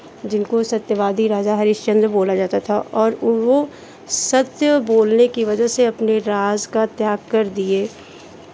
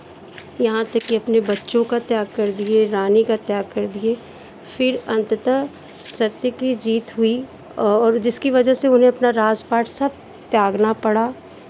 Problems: constant background noise